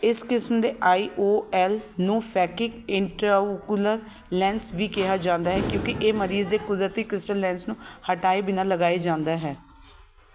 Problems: constant background noise, background conversations at intervals